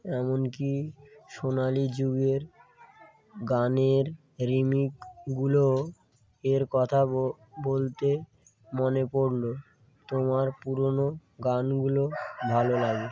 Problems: background sounds at intervals